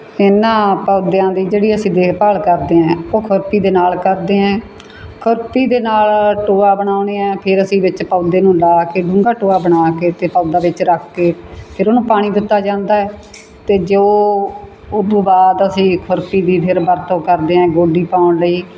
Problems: none marked